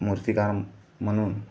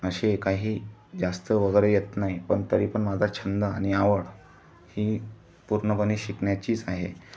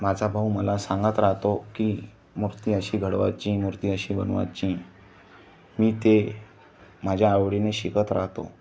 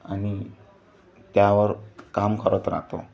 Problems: background sounds at intervals